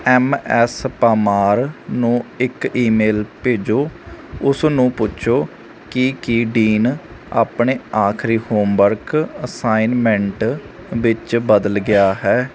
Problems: constant background noise